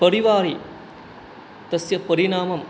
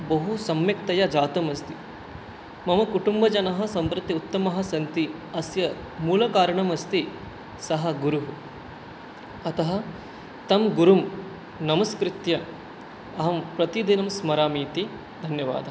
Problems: none marked